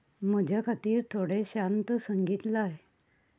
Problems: constant background noise